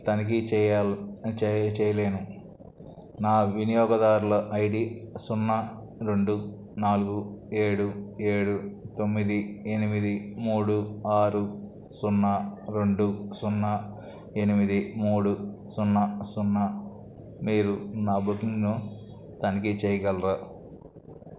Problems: none marked